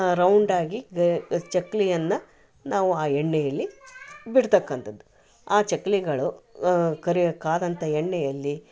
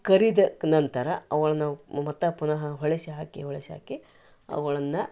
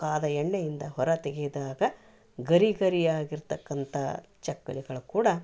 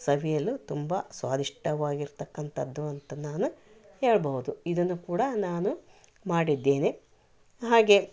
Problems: none marked